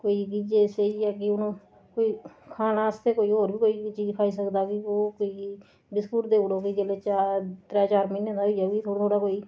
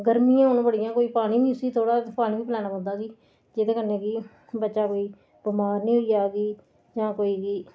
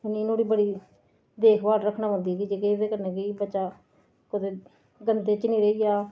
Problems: none marked